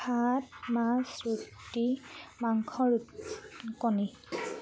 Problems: none marked